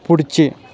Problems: constant background noise, background conversations at intervals